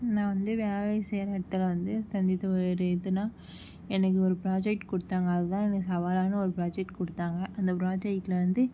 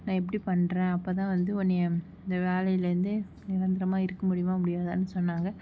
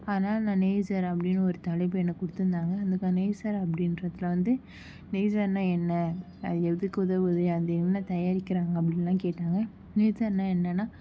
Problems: none marked